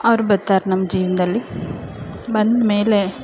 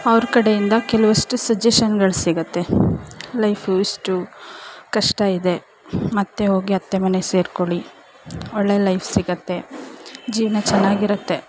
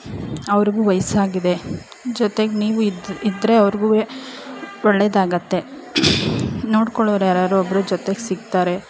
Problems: background sounds at intervals, background conversations at intervals